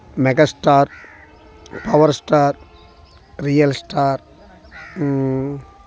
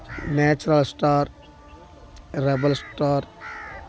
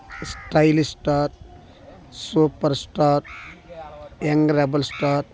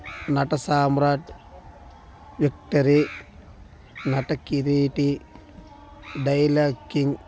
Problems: background sounds at intervals